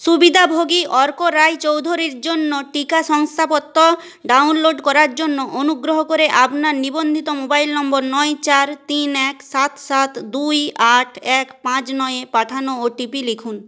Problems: none marked